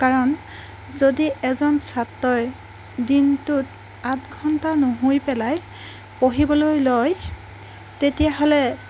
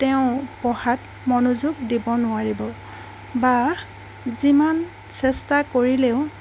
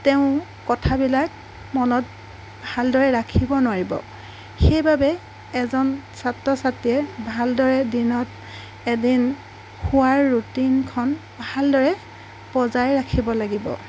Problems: background sounds at intervals